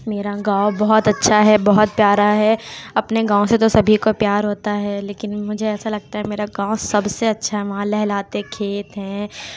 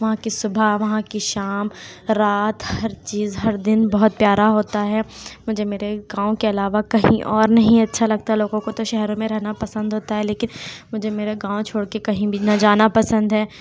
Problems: constant background noise